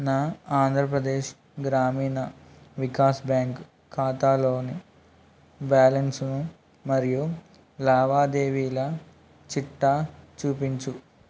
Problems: constant background noise